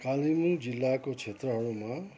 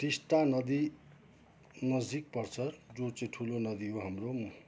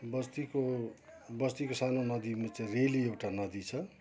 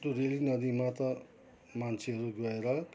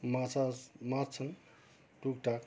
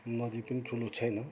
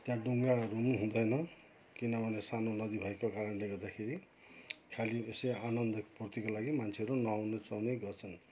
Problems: background sounds at intervals